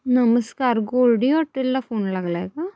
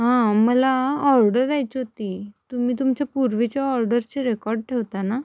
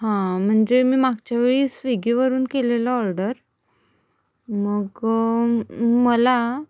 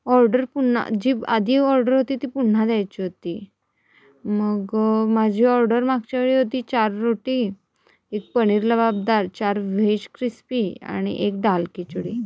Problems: background sounds at intervals